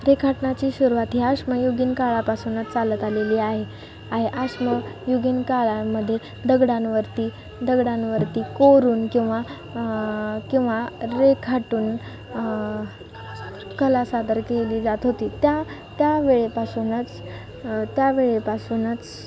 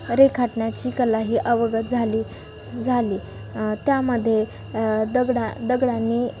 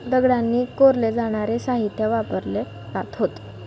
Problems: none marked